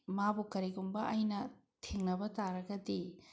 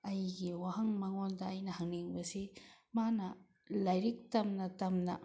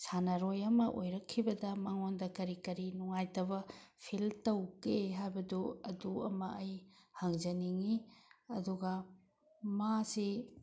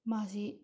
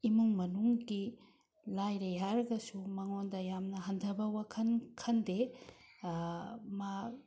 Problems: none marked